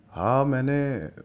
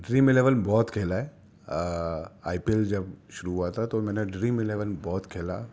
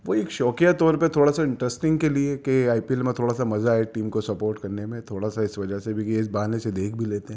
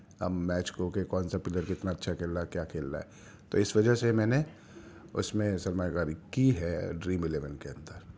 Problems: none marked